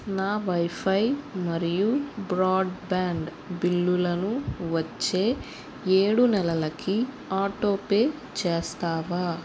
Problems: constant background noise